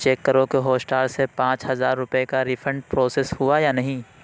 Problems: none marked